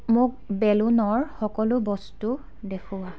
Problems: continuous background conversations